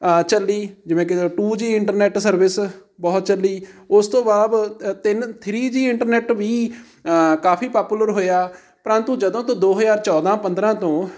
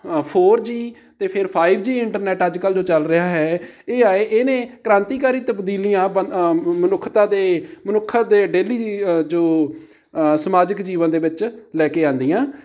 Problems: none marked